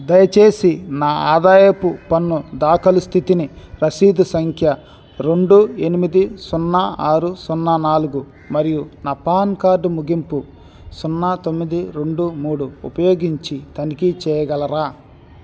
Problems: constant background noise